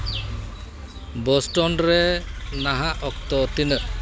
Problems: constant background noise, continuous background conversations